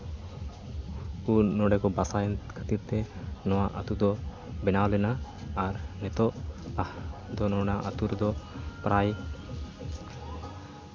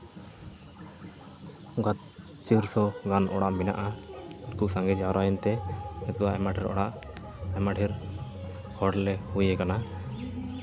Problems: constant background noise